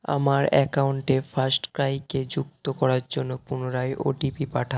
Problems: none marked